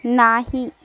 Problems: background sounds at intervals